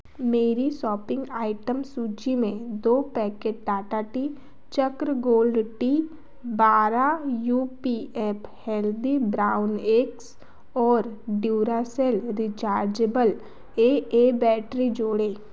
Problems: constant background noise